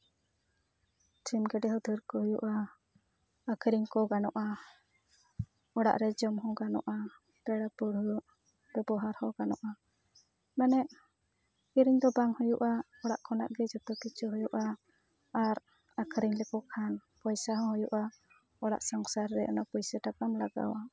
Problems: background sounds at intervals, background conversations at intervals